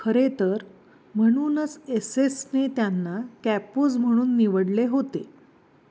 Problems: background sounds at intervals